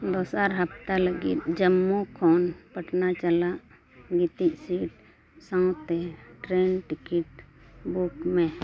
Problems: background conversations at intervals